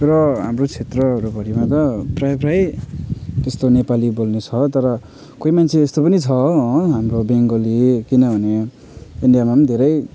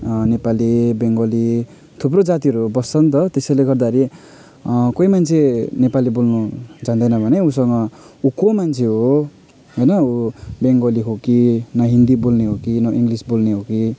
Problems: background sounds at intervals